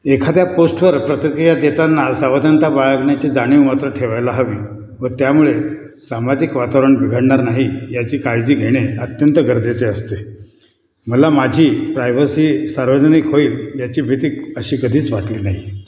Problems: none marked